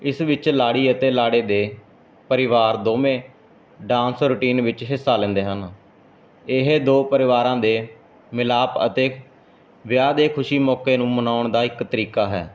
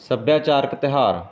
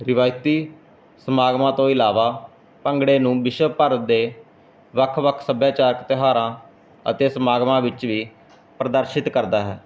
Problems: none marked